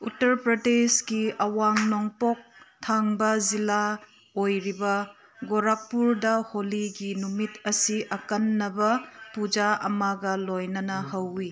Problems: background conversations at intervals